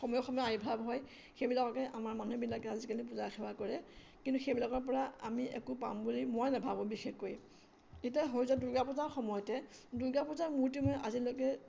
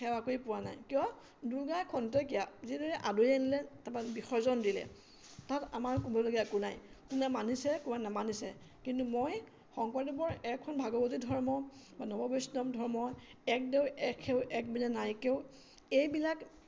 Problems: constant background noise